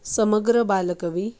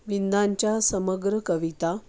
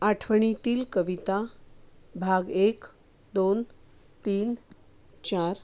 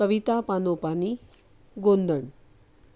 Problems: background sounds at intervals